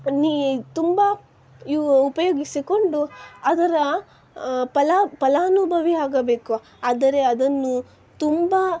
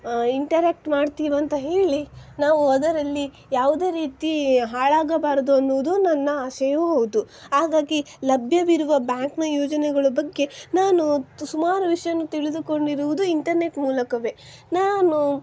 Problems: background sounds at intervals